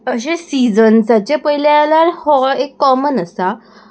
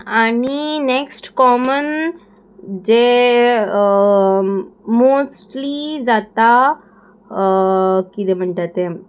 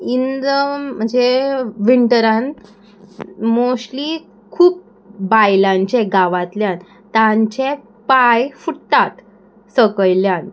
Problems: none marked